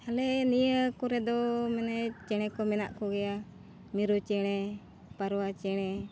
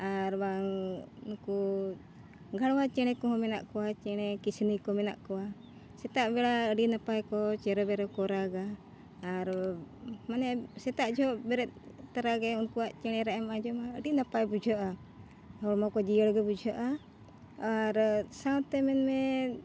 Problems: none marked